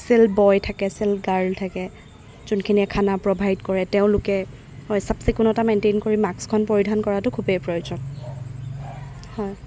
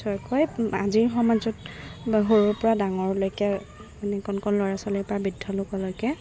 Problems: background sounds at intervals